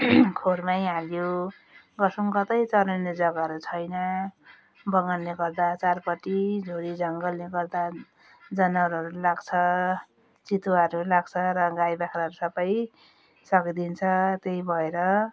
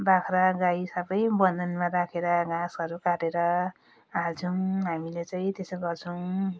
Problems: none marked